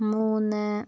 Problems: none marked